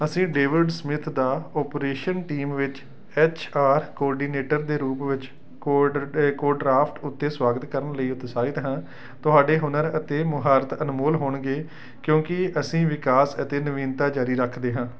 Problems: none marked